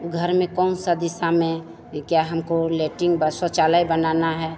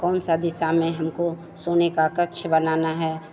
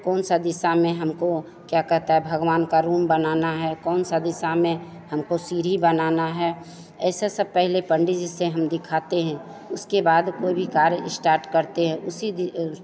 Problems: constant background noise, background conversations at intervals